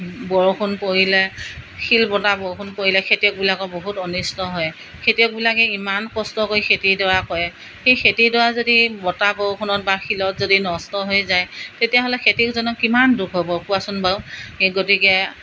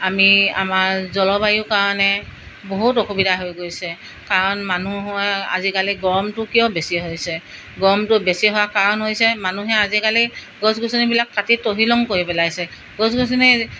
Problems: none marked